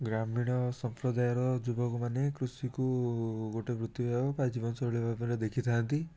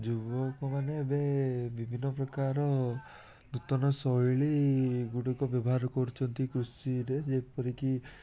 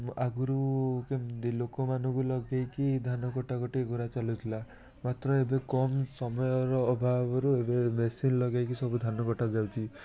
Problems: constant background noise, continuous background conversations